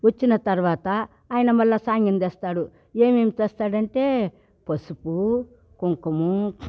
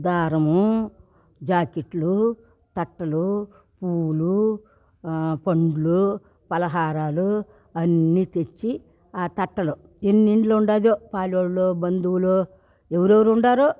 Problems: none marked